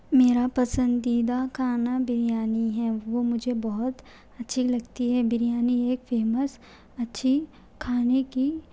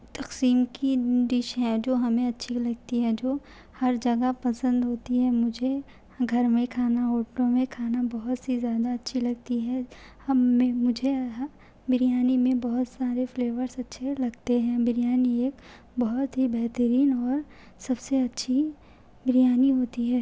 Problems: none marked